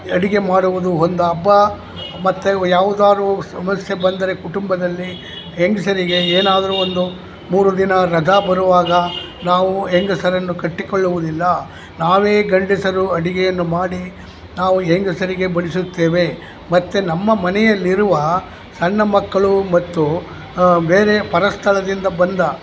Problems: constant background noise, background conversations at intervals